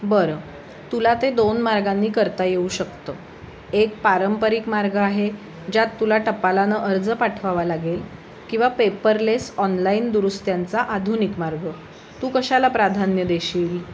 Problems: constant background noise